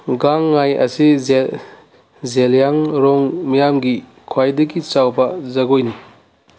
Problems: none marked